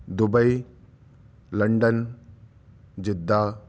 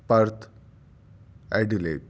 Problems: none marked